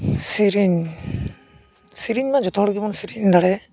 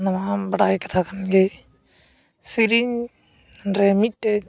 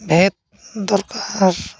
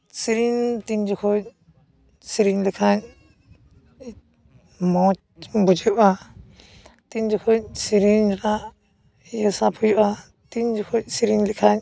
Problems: background sounds at intervals